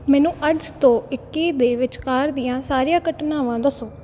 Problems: background sounds at intervals